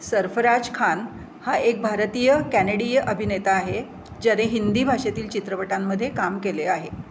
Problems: constant background noise